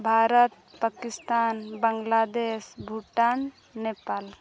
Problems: none marked